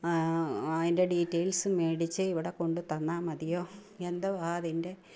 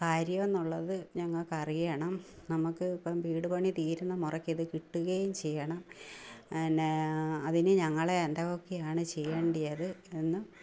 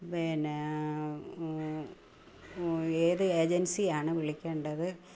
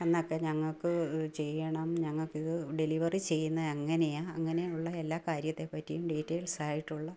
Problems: low volume